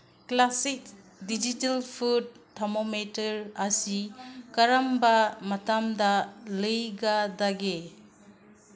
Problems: background sounds at intervals